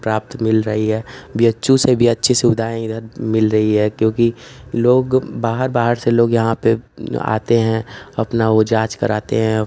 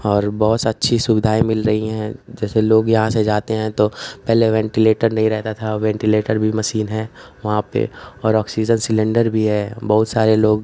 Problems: constant background noise